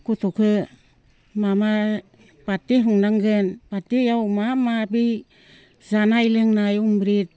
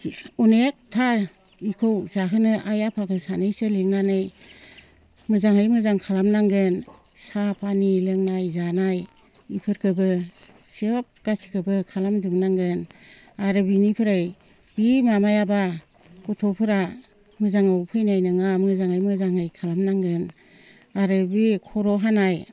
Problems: constant background noise